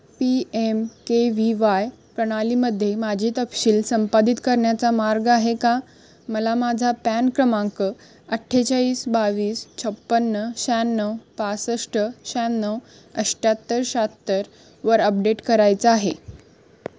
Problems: none marked